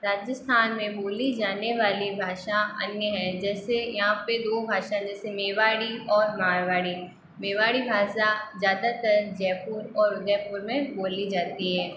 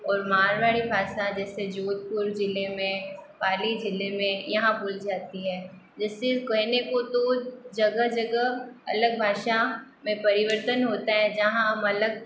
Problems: constant background noise